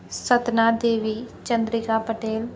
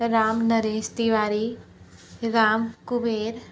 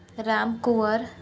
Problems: none marked